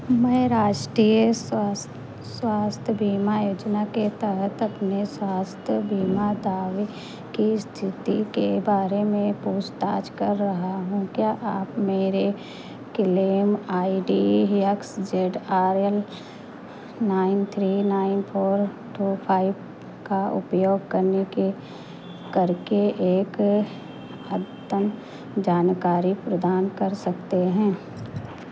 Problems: constant background noise